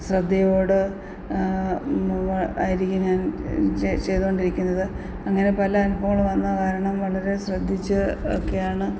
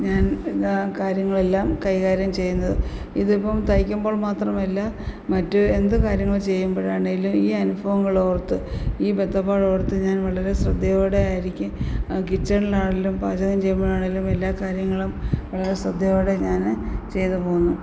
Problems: constant background noise